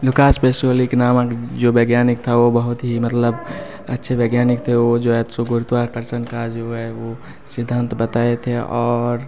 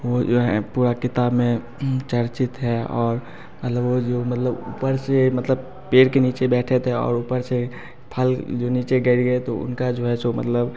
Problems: constant background noise